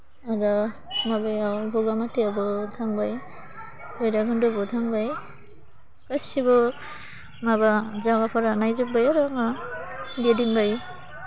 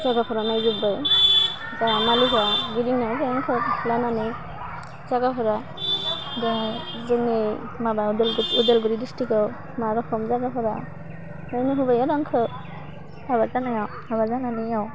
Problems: low volume